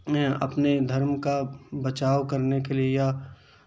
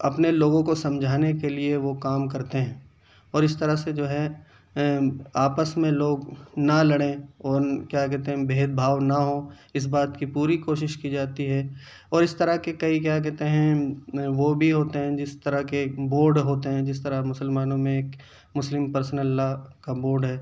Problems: none marked